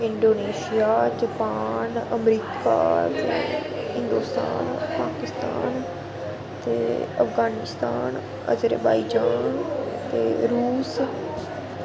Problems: constant background noise